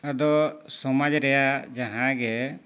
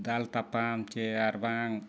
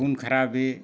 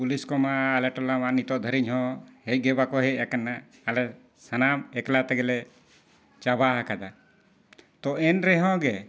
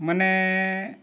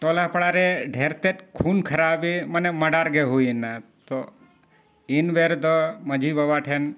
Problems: none marked